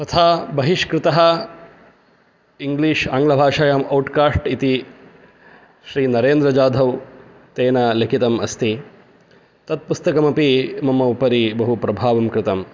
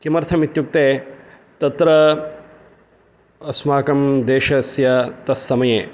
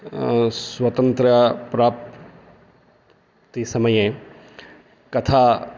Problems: none marked